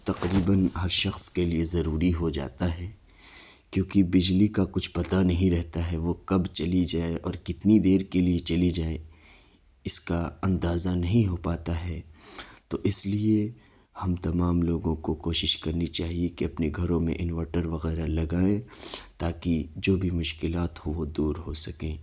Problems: none marked